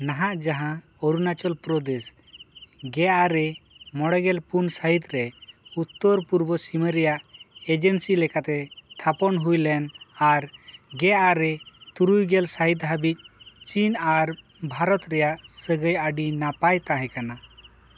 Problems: background sounds at intervals